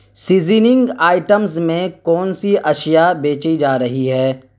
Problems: constant background noise